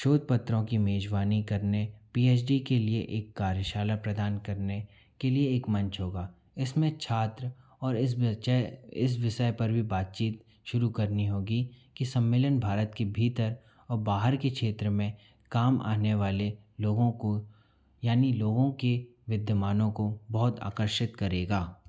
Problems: constant background noise